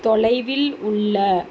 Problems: constant background noise